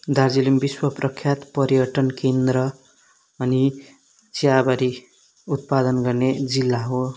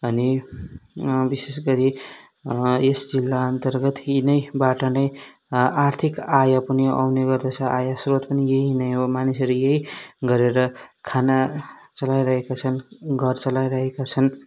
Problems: background sounds at intervals